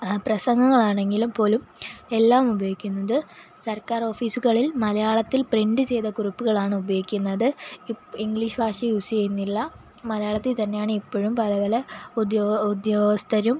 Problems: constant background noise